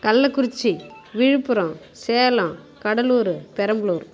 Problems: background sounds at intervals